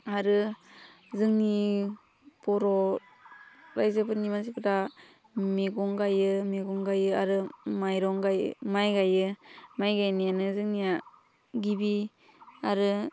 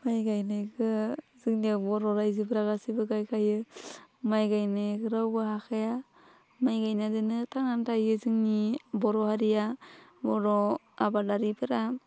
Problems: constant background noise